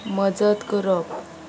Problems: constant background noise